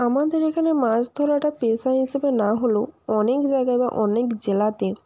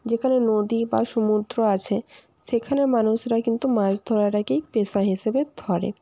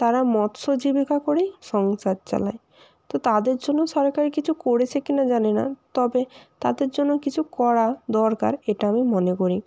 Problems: constant background noise